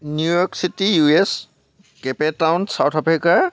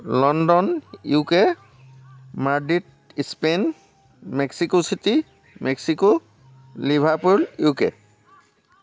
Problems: background sounds at intervals, background conversations at intervals